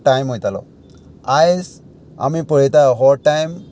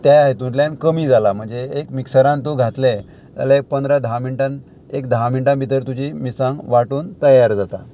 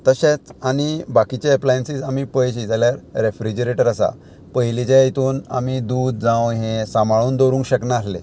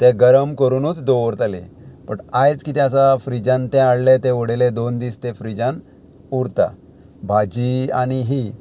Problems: constant background noise